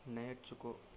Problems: none marked